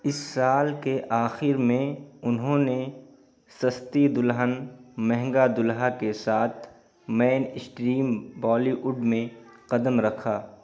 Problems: background sounds at intervals, background conversations at intervals